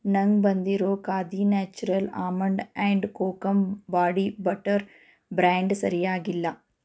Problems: none marked